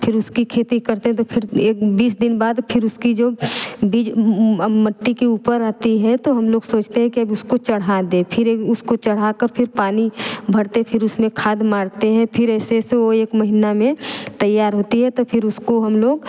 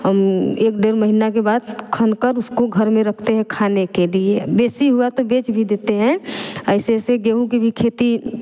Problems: background conversations at intervals